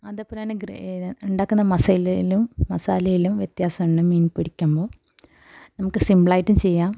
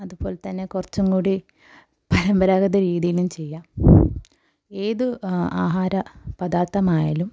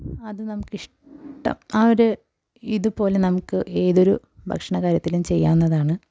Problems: background sounds at intervals